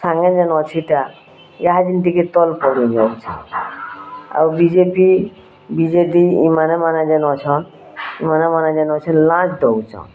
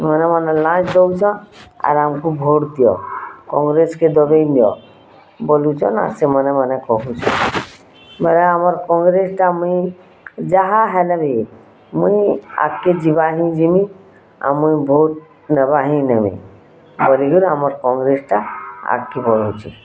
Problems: constant background noise, continuous background conversations